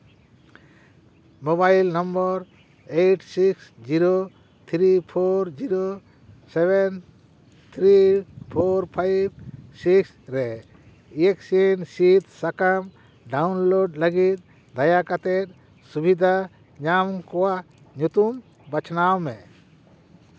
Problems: none marked